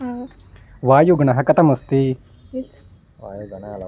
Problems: background conversations at intervals